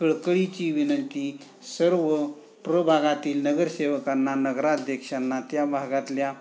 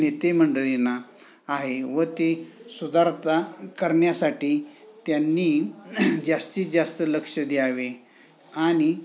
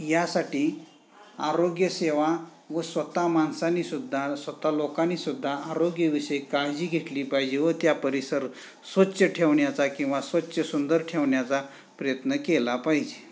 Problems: background sounds at intervals, background conversations at intervals